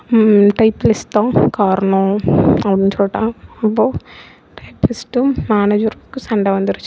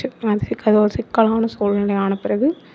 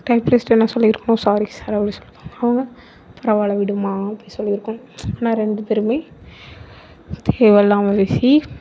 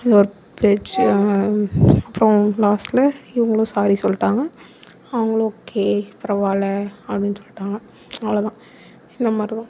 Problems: background sounds at intervals